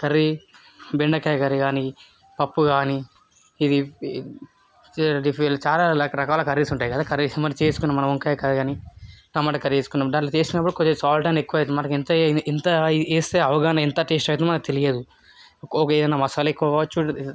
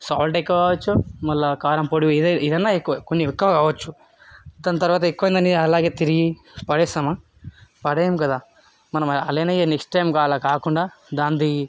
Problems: background sounds at intervals, background conversations at intervals